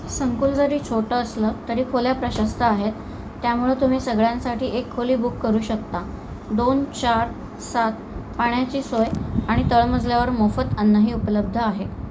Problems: constant background noise